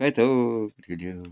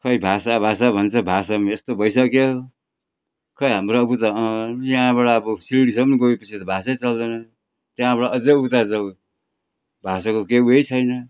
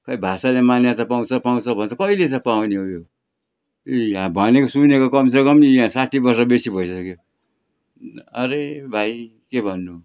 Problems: background sounds at intervals